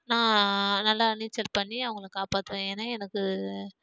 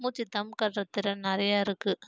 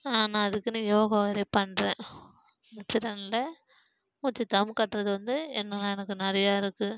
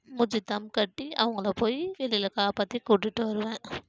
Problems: none marked